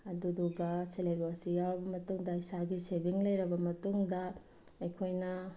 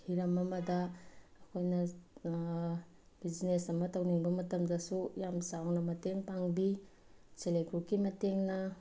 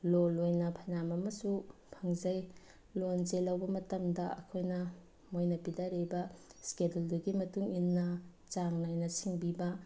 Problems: background sounds at intervals